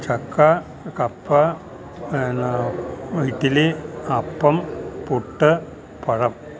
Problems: background sounds at intervals